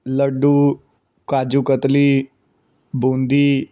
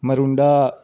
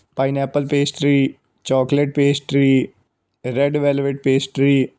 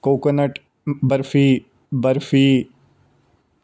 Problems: background sounds at intervals